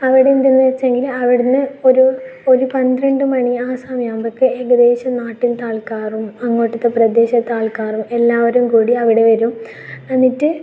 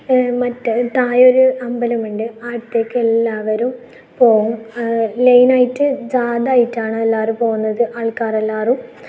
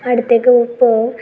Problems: none marked